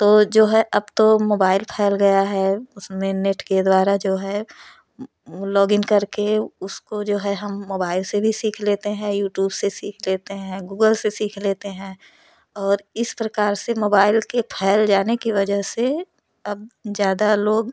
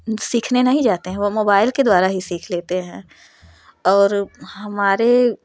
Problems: none marked